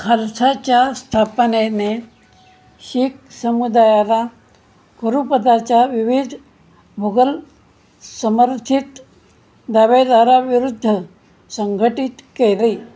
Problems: none marked